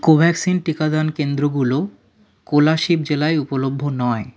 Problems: none marked